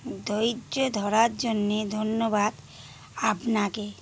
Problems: constant background noise